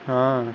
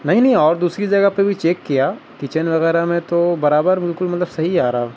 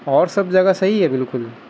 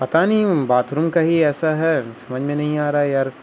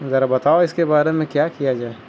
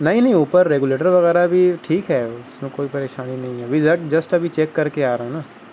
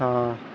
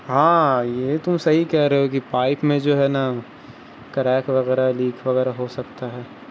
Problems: constant background noise